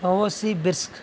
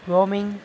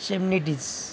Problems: constant background noise